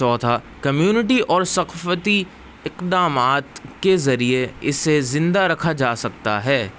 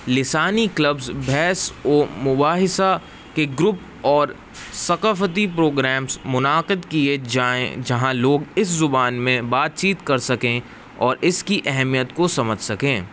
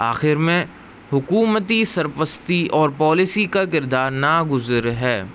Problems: constant background noise